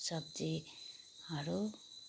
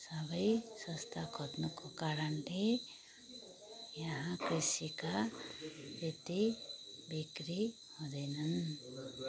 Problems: background sounds at intervals, background conversations at intervals